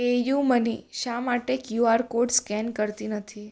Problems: none marked